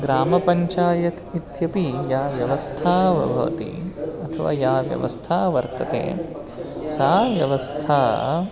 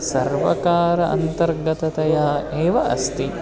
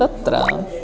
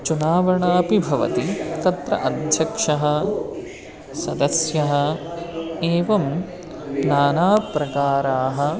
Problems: constant background noise, continuous background conversations